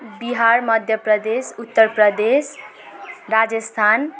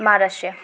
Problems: constant background noise